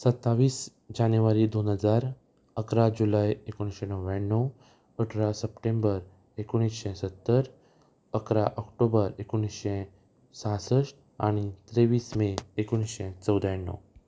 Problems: none marked